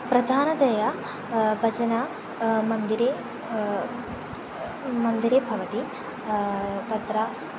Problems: none marked